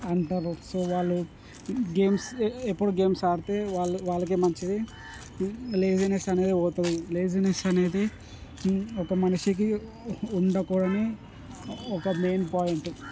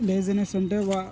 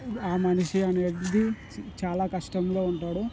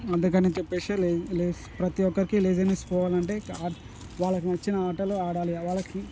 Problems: constant background noise